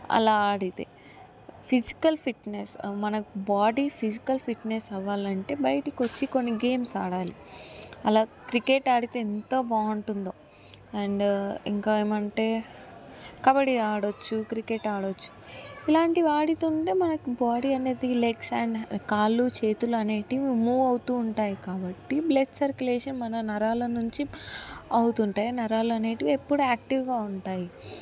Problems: constant background noise